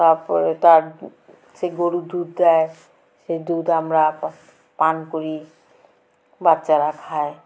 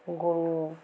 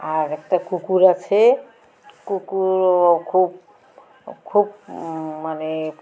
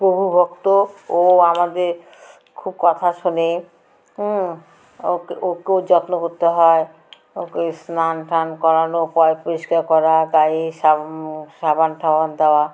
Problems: constant background noise